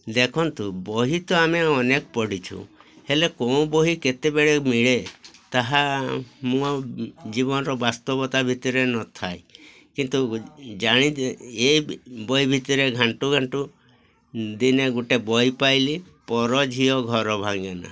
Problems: constant background noise, continuous background conversations